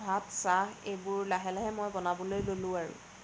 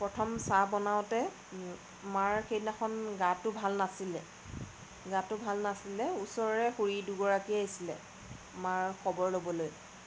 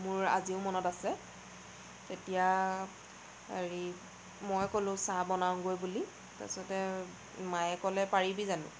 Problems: none marked